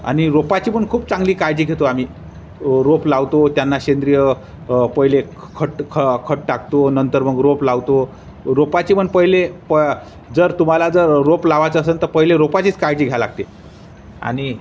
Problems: constant background noise, background conversations at intervals